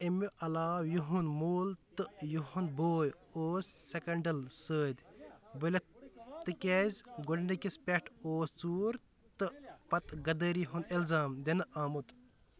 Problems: background sounds at intervals